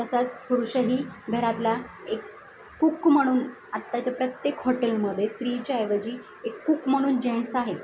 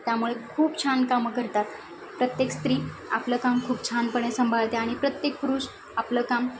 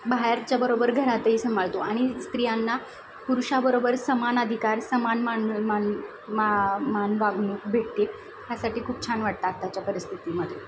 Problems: none marked